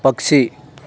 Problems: none marked